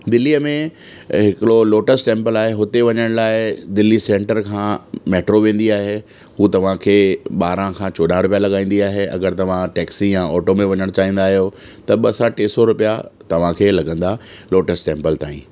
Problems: constant background noise